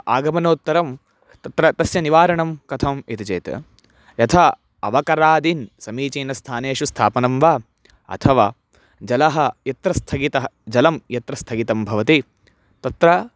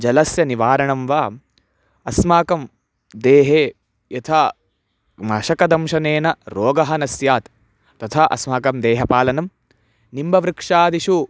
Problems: none marked